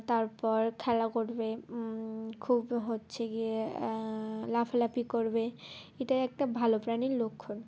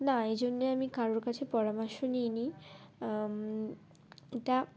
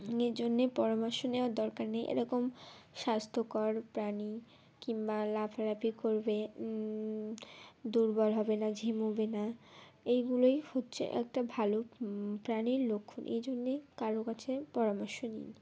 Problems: constant background noise, background conversations at intervals